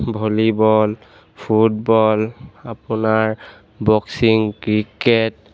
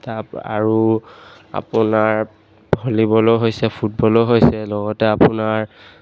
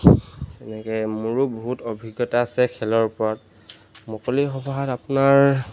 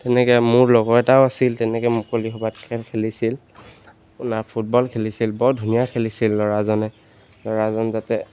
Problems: none marked